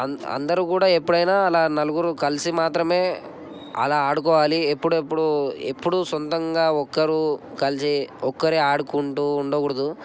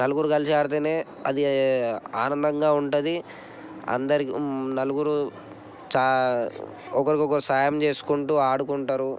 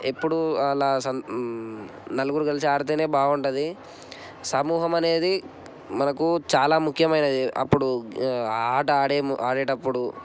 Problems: none marked